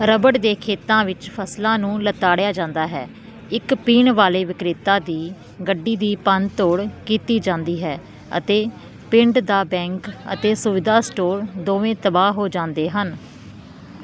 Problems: constant background noise